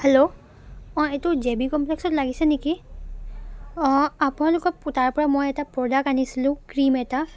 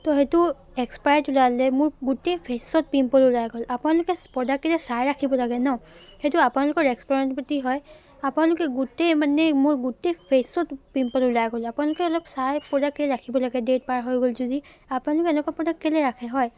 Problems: constant background noise